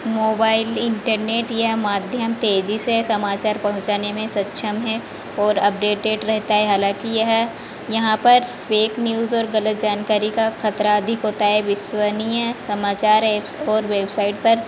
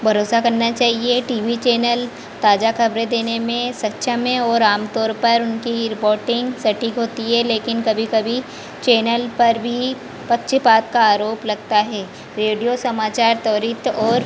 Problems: constant background noise, background conversations at intervals